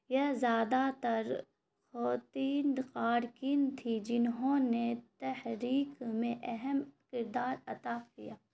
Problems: constant background noise